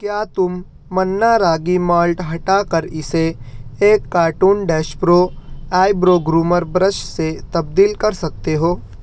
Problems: none marked